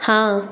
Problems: echo